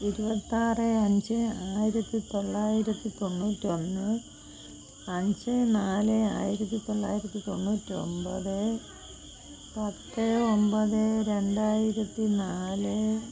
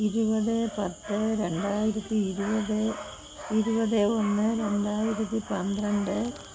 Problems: constant background noise, low volume